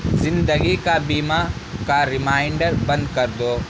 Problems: constant background noise